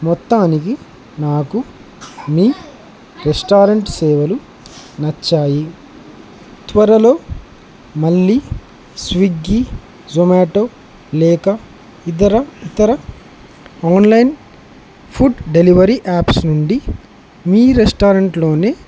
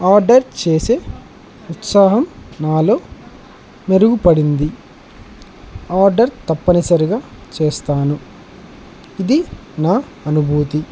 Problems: constant background noise